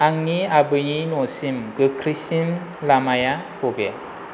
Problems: constant background noise